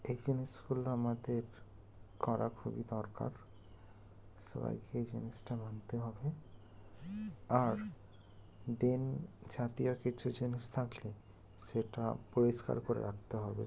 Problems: constant background noise